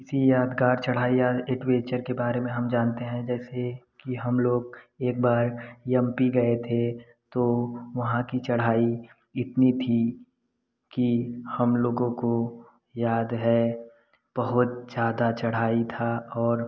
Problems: none marked